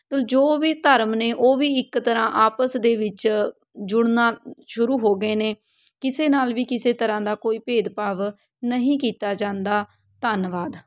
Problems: none marked